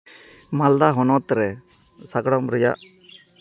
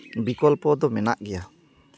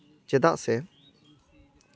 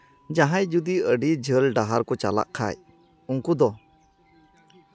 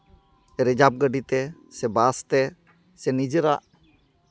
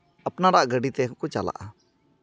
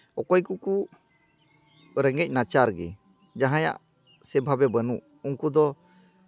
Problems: background sounds at intervals